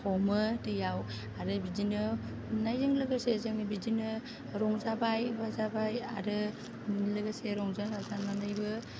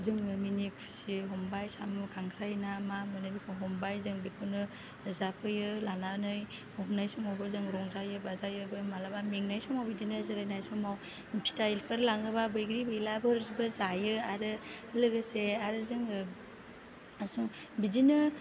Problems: low volume